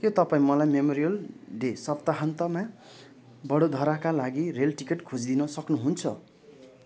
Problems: continuous background conversations